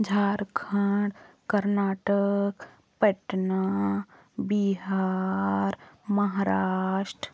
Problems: none marked